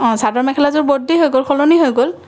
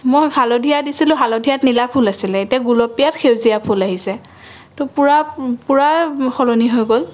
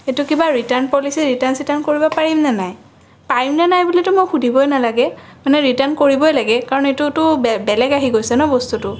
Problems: none marked